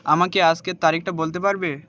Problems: constant background noise